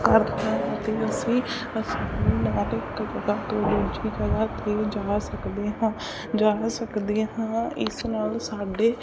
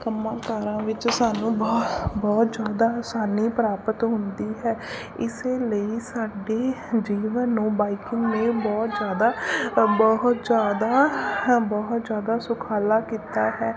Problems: constant background noise, background conversations at intervals